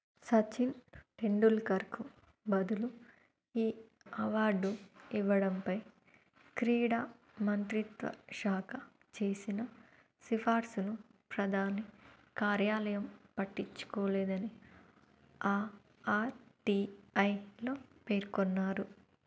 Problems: low volume